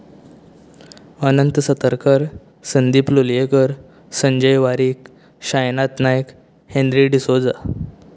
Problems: none marked